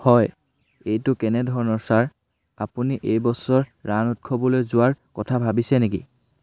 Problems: none marked